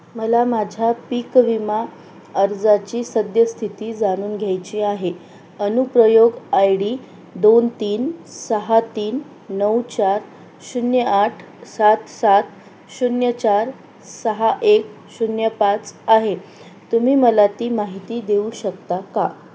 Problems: constant background noise